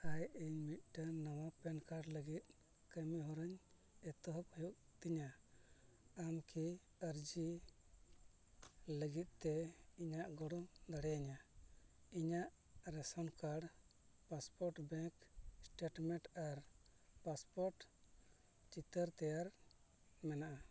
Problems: background sounds at intervals, low volume